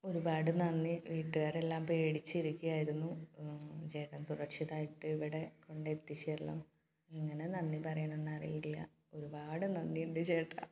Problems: background sounds at intervals, low volume